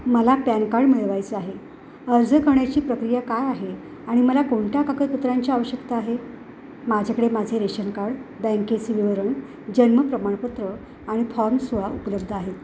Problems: constant background noise